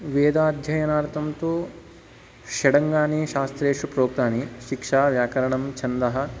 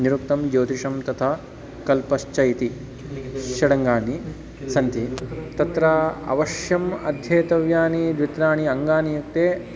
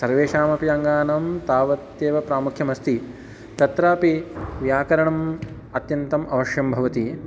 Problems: none marked